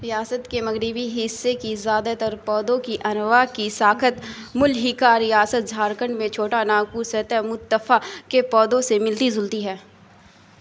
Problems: none marked